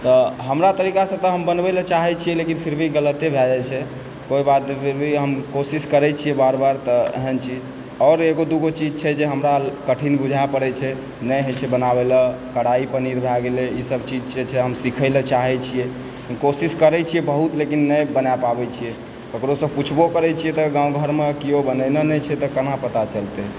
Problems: constant background noise, background conversations at intervals